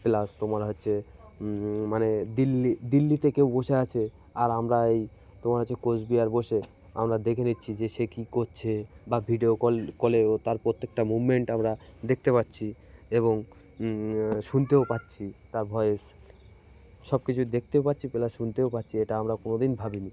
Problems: continuous background conversations